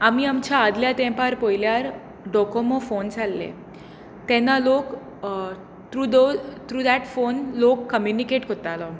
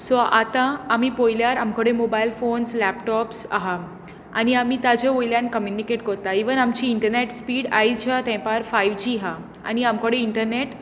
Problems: constant background noise